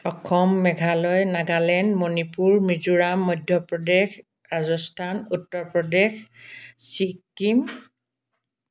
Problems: background sounds at intervals